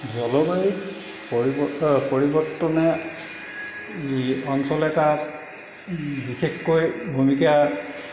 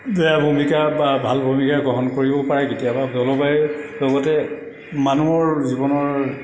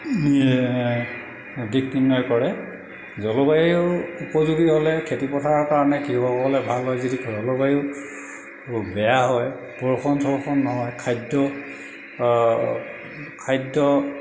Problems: background sounds at intervals, echo